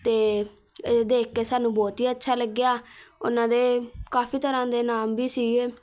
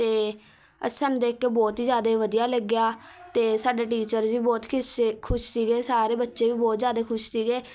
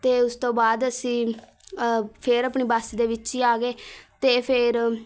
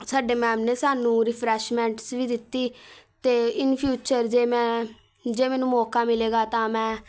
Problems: none marked